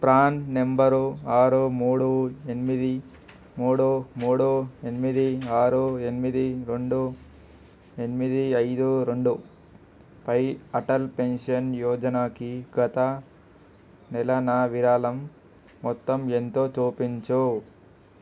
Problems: constant background noise